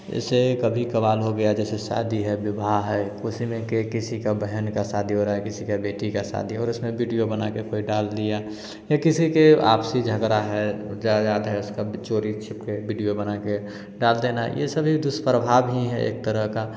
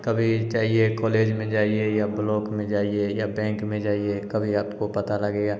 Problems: background sounds at intervals